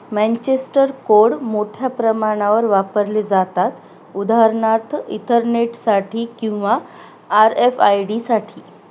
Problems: none marked